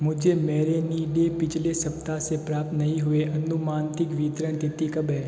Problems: constant background noise